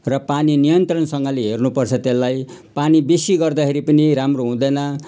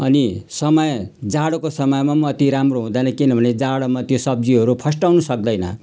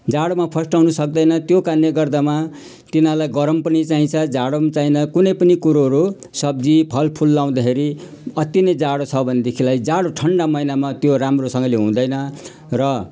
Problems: none marked